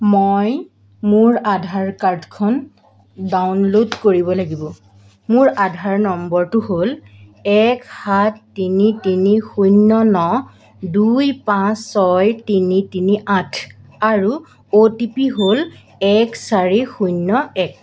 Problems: constant background noise